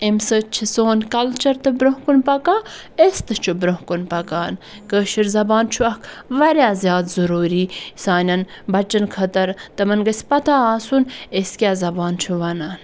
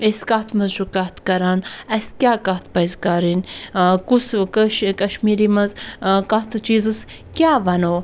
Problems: background sounds at intervals